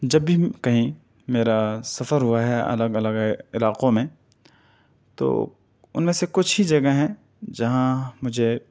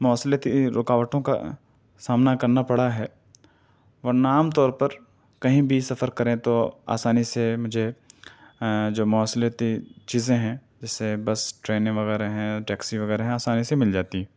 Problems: none marked